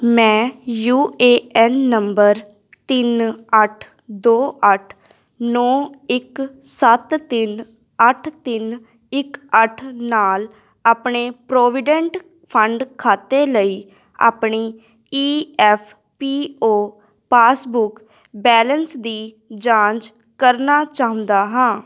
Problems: none marked